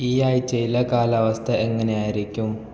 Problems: none marked